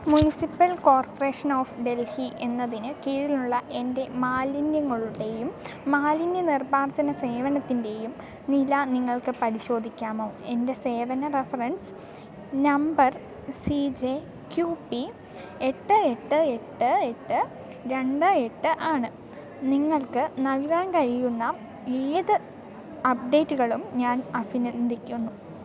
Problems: none marked